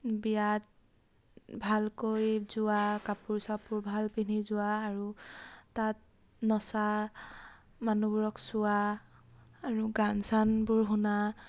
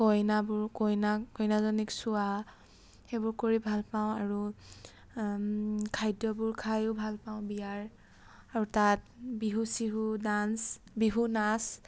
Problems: background sounds at intervals